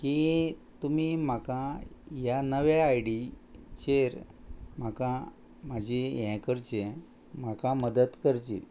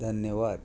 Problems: none marked